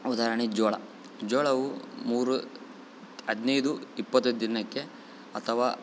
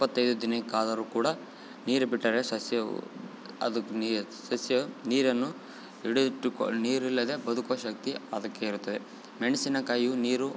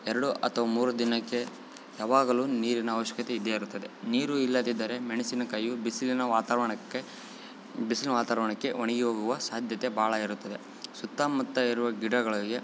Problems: none marked